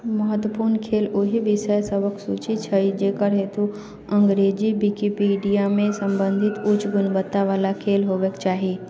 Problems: continuous background conversations